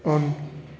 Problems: constant background noise